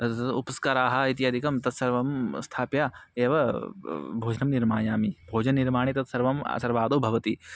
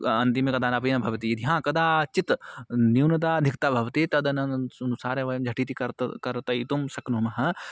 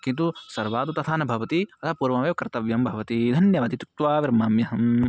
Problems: none marked